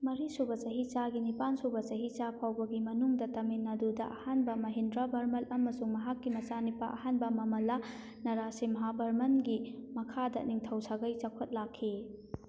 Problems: none marked